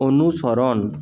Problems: constant background noise